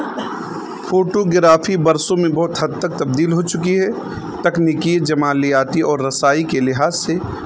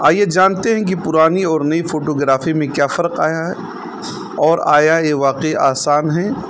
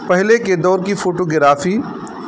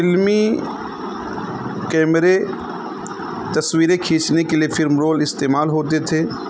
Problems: constant background noise